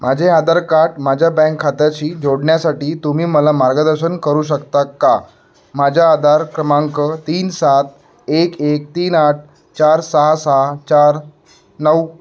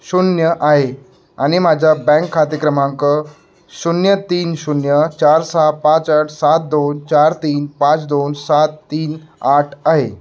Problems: none marked